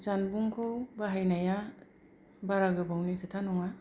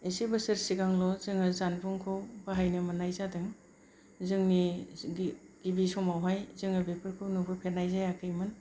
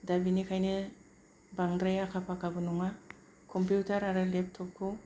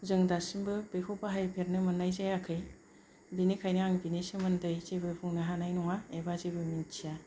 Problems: none marked